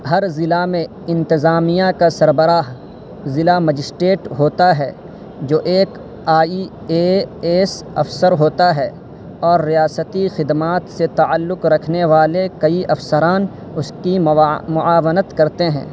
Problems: constant background noise